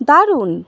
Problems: constant background noise